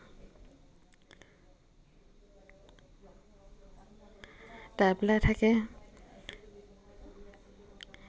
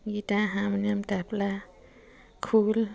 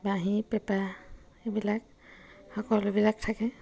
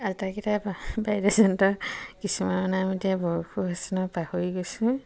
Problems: none marked